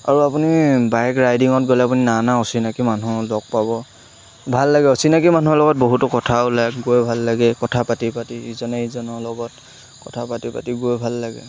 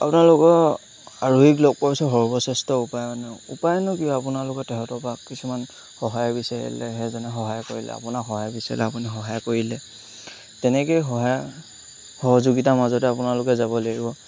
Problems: constant background noise